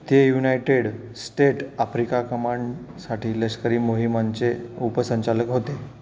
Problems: constant background noise, background conversations at intervals